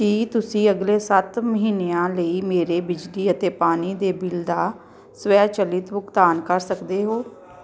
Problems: background sounds at intervals